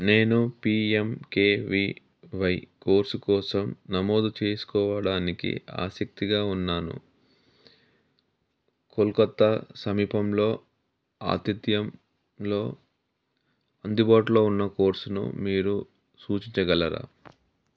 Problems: none marked